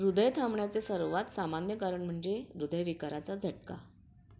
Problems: background sounds at intervals